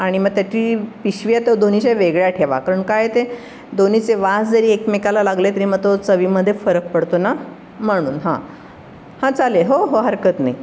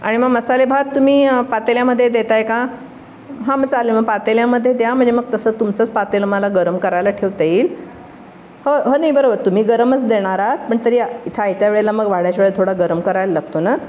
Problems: constant background noise